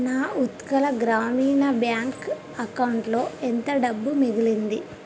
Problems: constant background noise